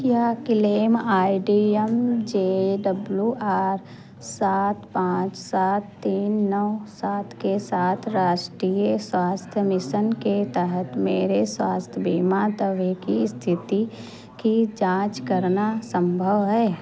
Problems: constant background noise